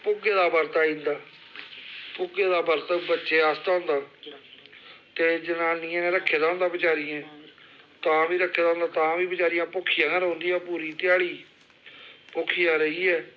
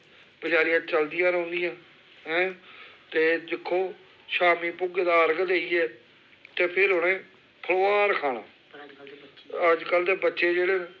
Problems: constant background noise